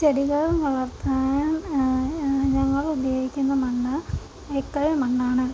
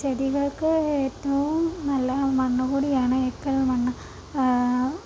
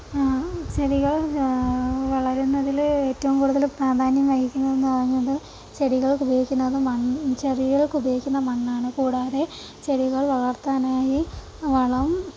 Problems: constant background noise, low volume